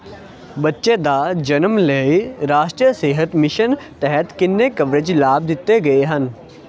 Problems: none marked